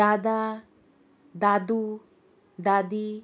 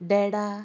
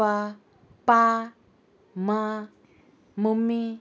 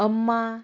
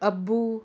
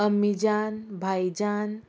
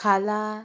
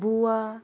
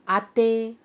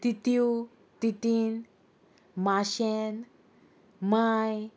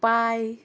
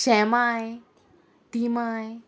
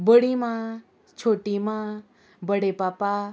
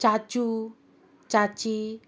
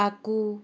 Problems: constant background noise